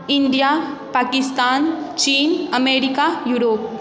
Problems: none marked